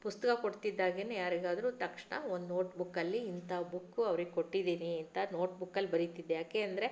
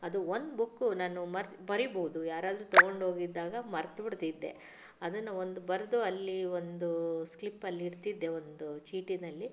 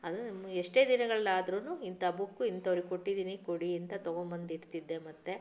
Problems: none marked